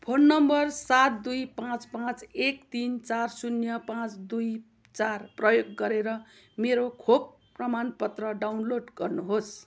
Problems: constant background noise